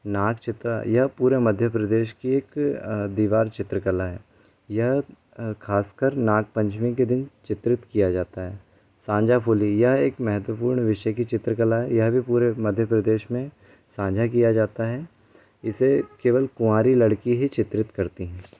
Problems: constant background noise